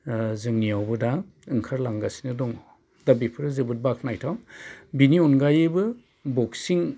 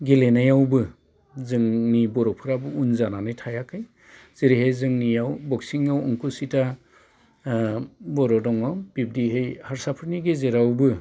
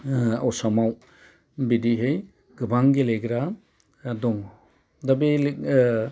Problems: constant background noise